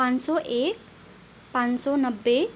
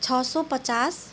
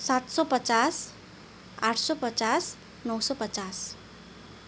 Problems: none marked